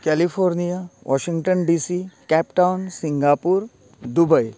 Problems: constant background noise